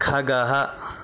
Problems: constant background noise